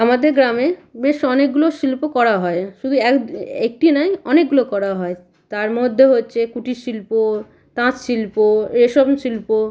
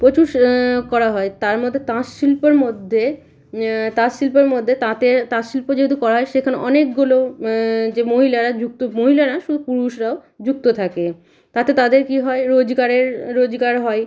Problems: none marked